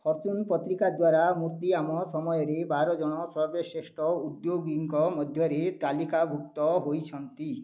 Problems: none marked